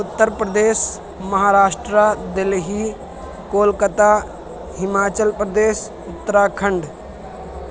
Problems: constant background noise